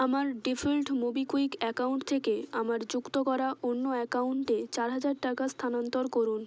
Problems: constant background noise